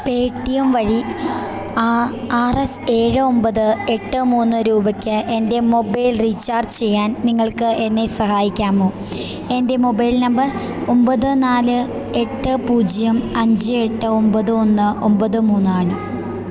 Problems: constant background noise